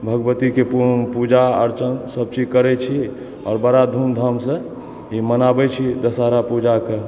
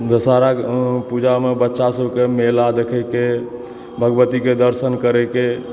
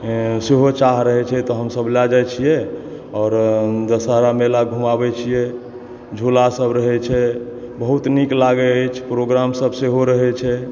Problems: background sounds at intervals, background conversations at intervals